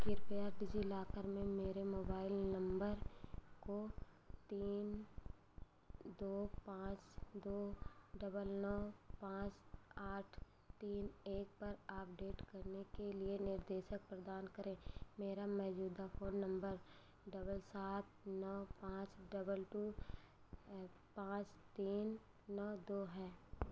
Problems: none marked